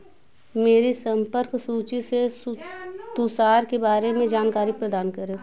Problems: none marked